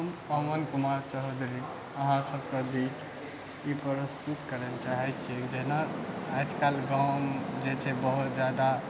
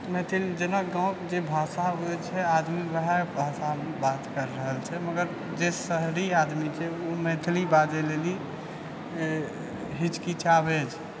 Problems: none marked